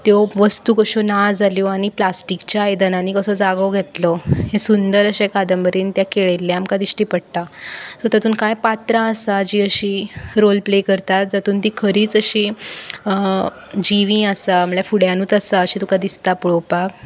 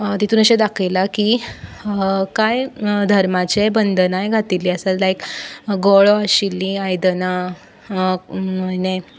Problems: background sounds at intervals